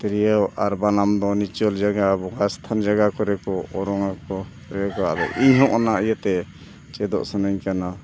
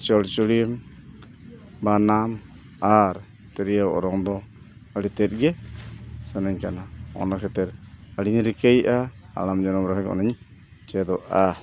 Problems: none marked